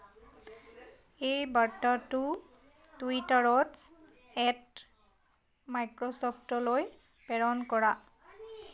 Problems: none marked